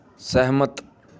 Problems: background conversations at intervals